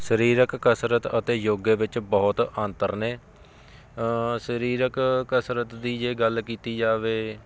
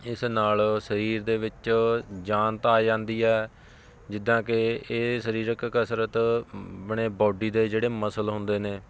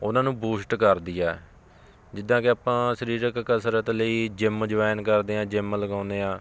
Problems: constant background noise